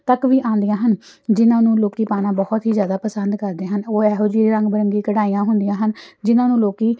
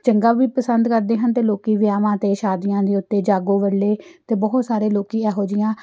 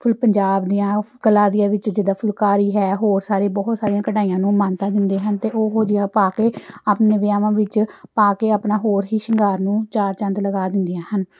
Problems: none marked